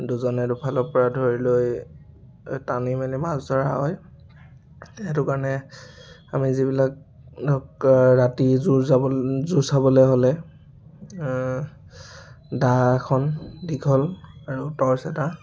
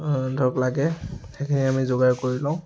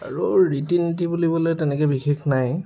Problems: none marked